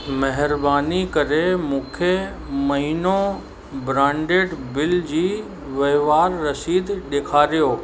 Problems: constant background noise, echo